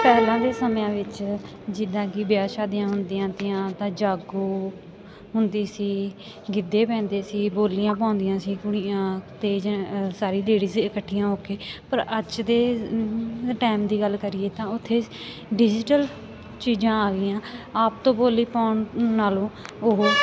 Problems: constant background noise